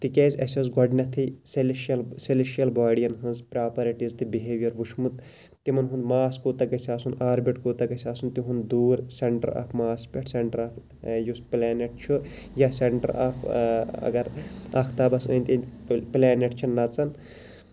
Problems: constant background noise